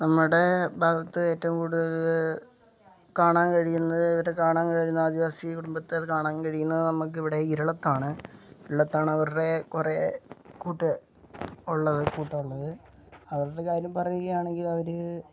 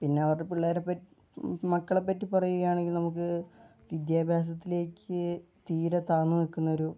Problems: none marked